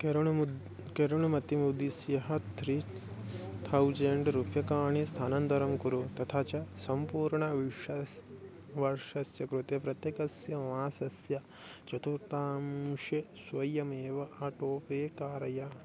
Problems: none marked